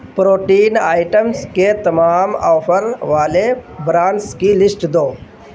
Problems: constant background noise